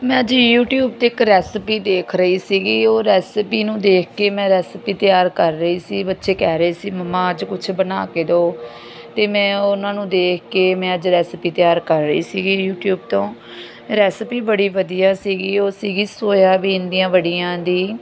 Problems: constant background noise